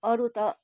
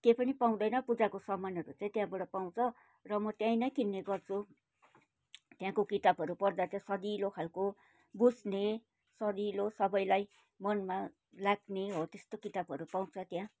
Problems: background sounds at intervals